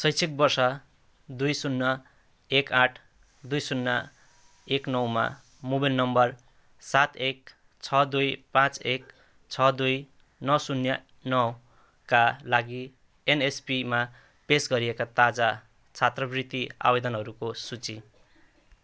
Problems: background sounds at intervals